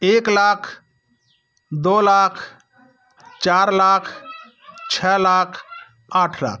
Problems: background sounds at intervals